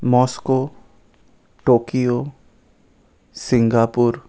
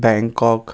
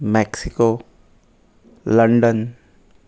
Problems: constant background noise